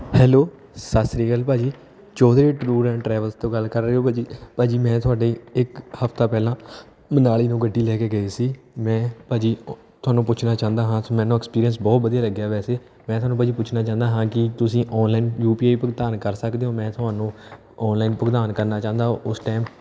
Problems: background sounds at intervals, background conversations at intervals